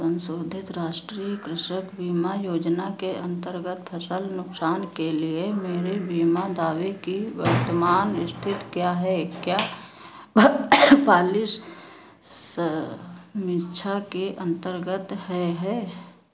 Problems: constant background noise, echo